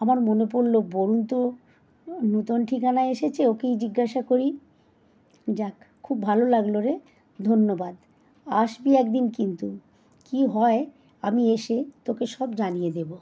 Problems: constant background noise